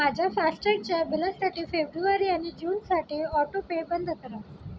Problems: none marked